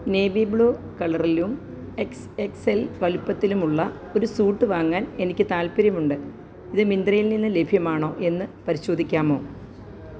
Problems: low volume